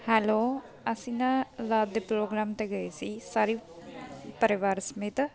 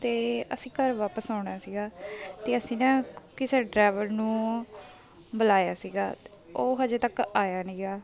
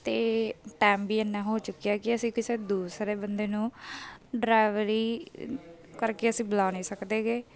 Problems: background sounds at intervals